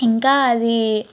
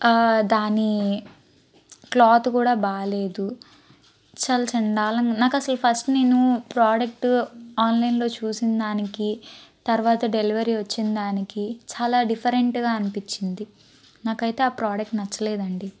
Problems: background sounds at intervals